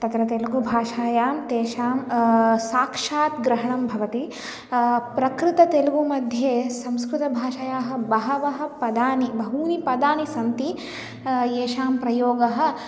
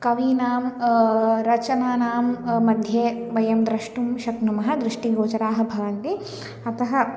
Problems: none marked